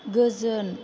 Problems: none marked